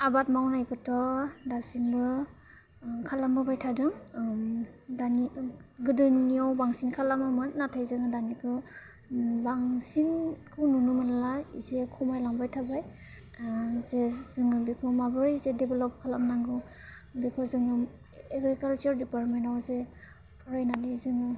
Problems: low volume